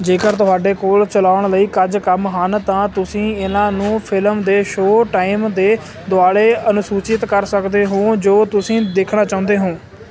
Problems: none marked